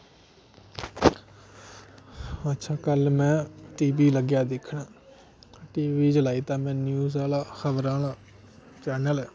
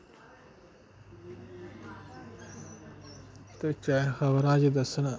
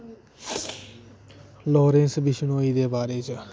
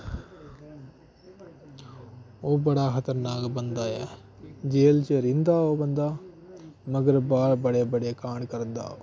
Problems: constant background noise